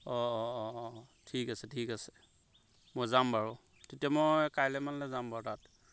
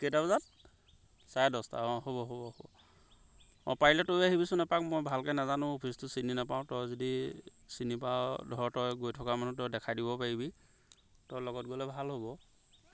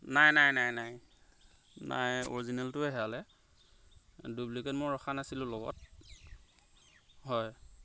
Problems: background sounds at intervals